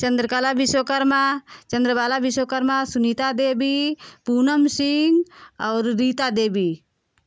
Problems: none marked